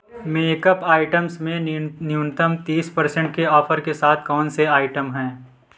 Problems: none marked